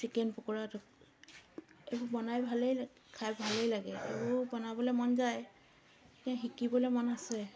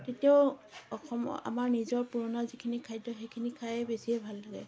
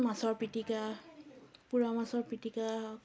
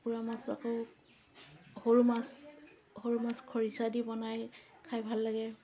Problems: constant background noise, continuous background conversations